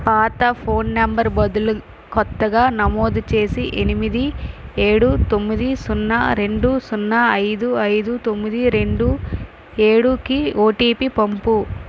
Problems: none marked